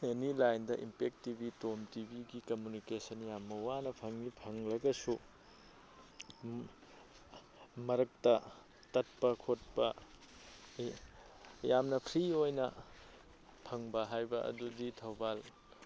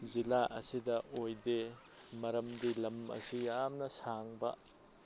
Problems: background conversations at intervals